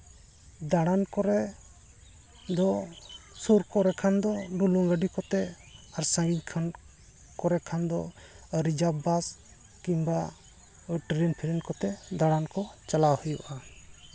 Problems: constant background noise